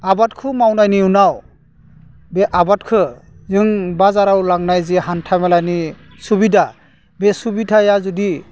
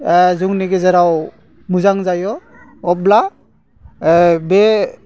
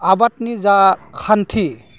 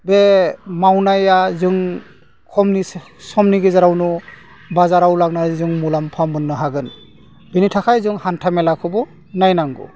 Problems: none marked